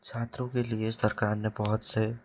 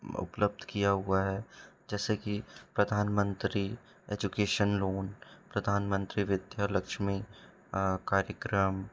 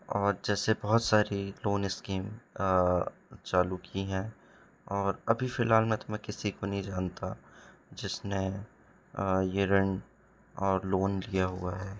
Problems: background sounds at intervals